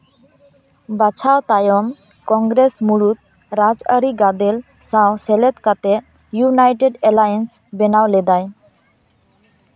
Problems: none marked